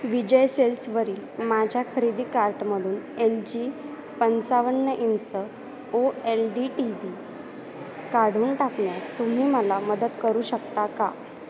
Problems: none marked